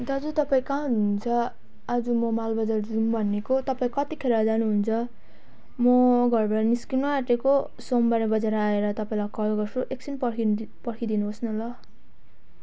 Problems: background sounds at intervals